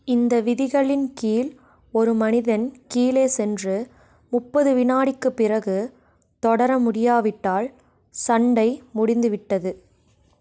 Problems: none marked